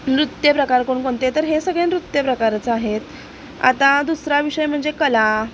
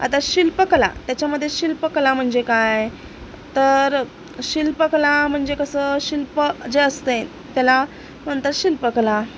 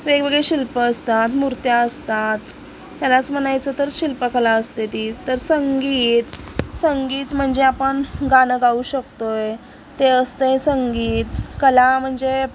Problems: none marked